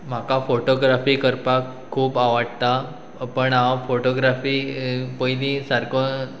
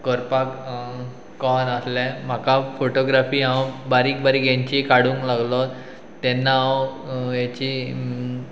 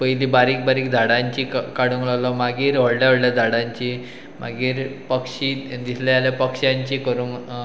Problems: background sounds at intervals